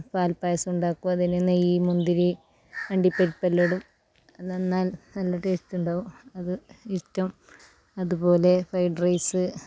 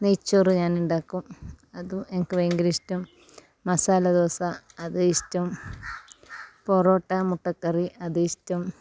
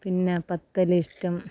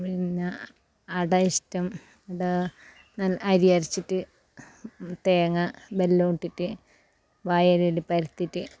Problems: background sounds at intervals, low volume